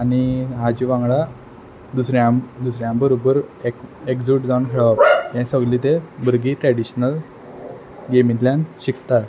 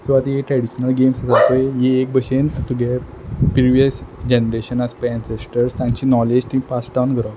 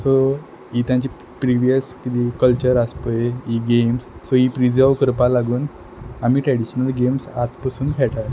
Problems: background sounds at intervals